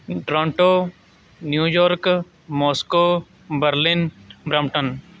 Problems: none marked